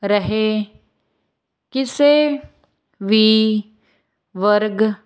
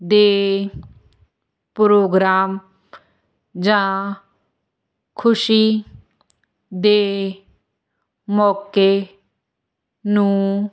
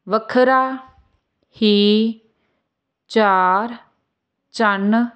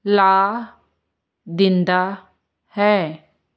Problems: none marked